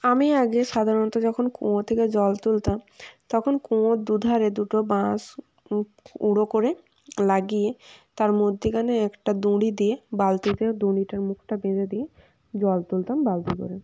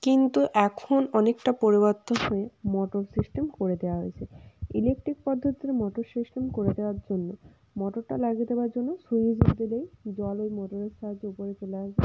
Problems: background sounds at intervals